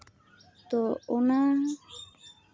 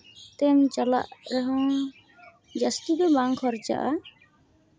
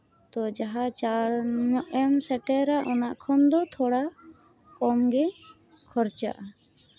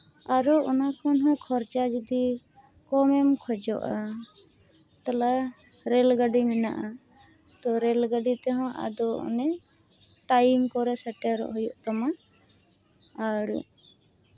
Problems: none marked